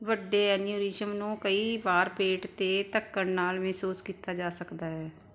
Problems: background sounds at intervals